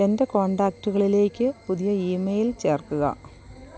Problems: constant background noise